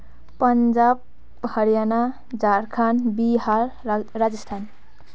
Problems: background sounds at intervals